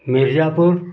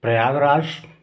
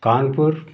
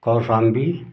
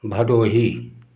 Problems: none marked